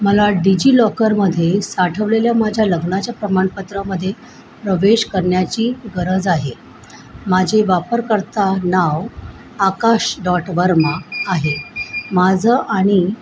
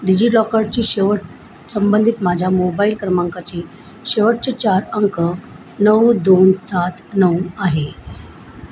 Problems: constant background noise